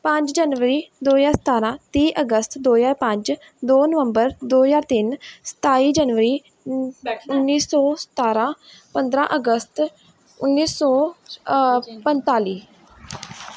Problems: none marked